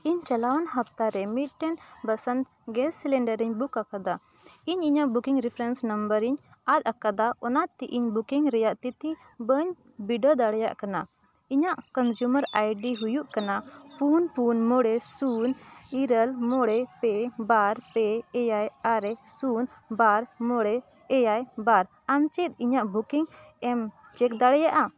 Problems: background sounds at intervals